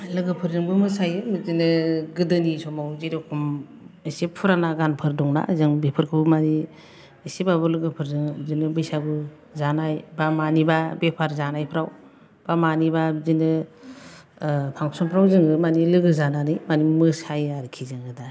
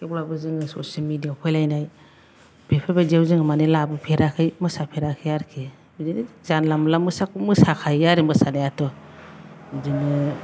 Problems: none marked